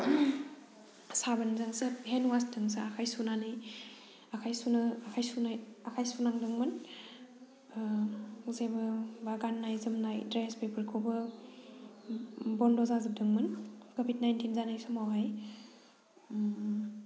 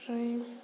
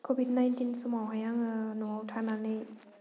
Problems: low volume